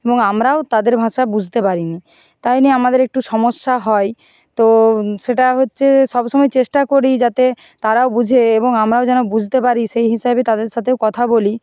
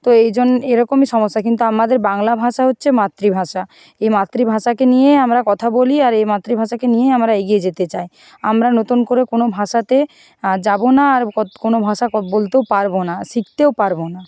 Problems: background sounds at intervals